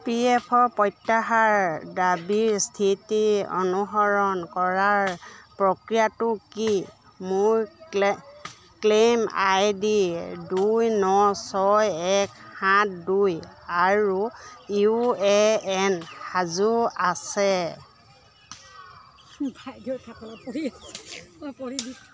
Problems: none marked